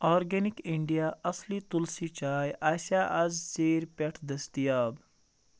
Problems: none marked